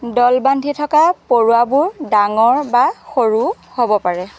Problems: none marked